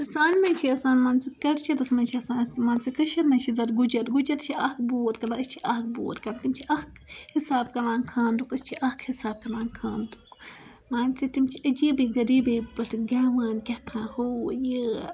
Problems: background sounds at intervals, background conversations at intervals